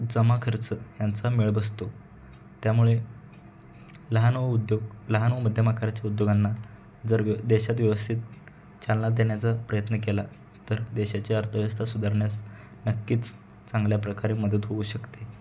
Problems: background sounds at intervals, background conversations at intervals